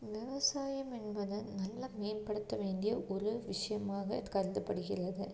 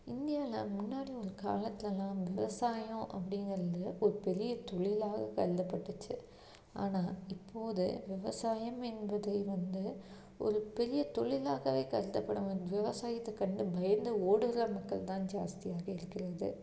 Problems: low volume